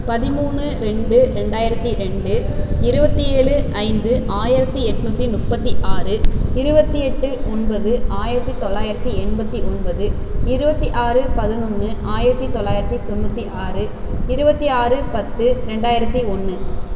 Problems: constant background noise